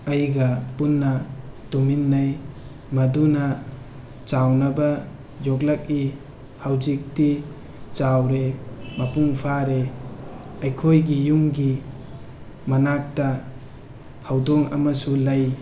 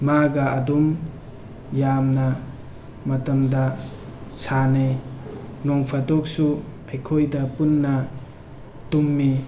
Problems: background sounds at intervals